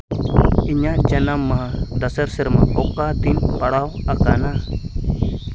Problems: constant background noise